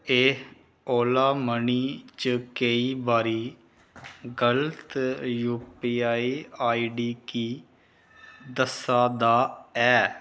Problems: none marked